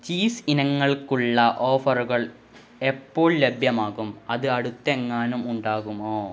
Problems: none marked